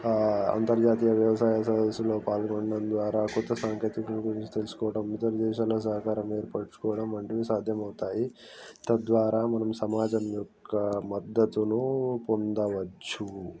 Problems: none marked